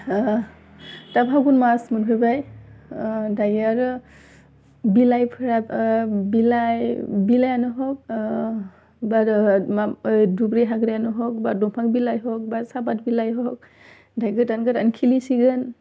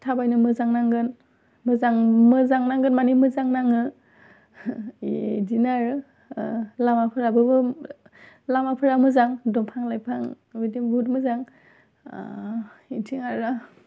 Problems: none marked